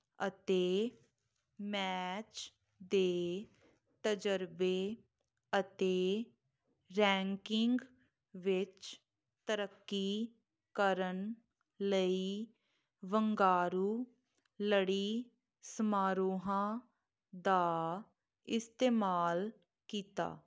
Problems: none marked